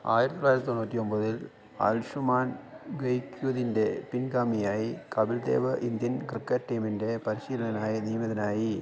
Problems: low volume